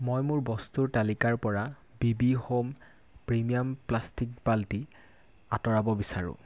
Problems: constant background noise